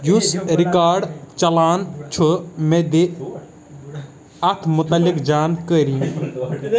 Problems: background sounds at intervals, continuous background conversations